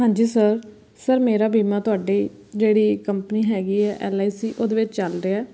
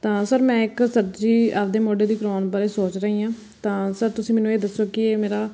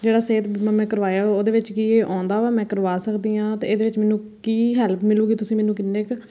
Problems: none marked